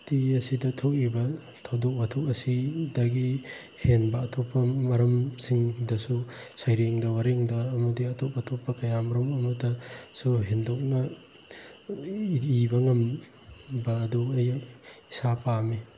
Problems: constant background noise